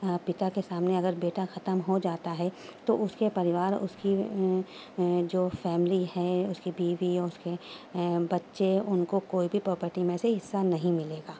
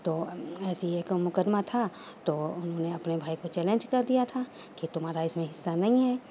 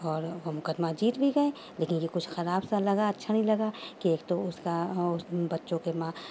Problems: background sounds at intervals, low volume